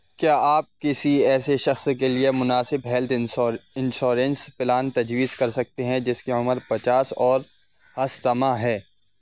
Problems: constant background noise